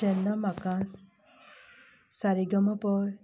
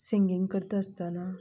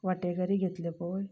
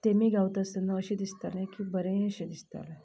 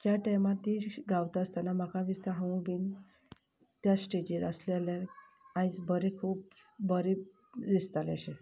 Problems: none marked